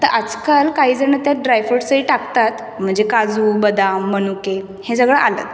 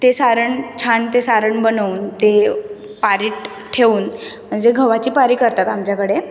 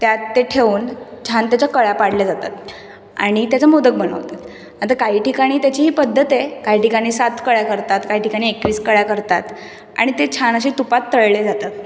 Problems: constant background noise